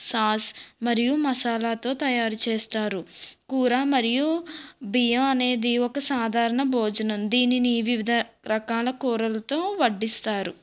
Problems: none marked